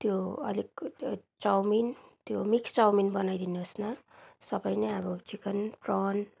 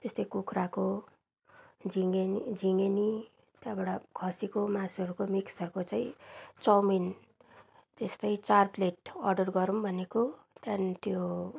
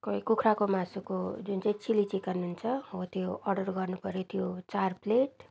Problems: background sounds at intervals